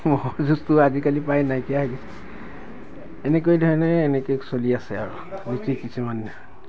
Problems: constant background noise